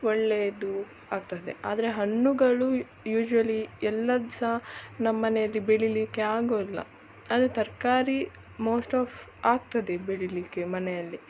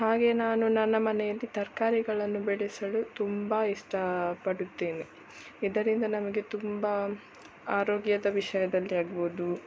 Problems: none marked